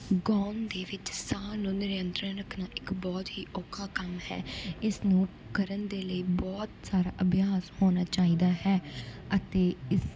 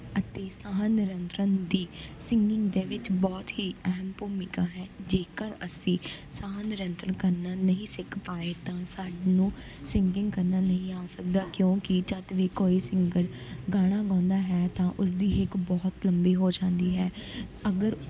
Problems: background sounds at intervals